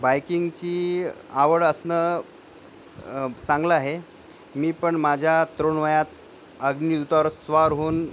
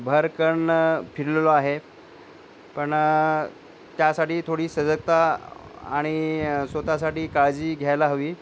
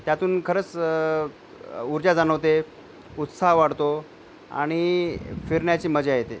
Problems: none marked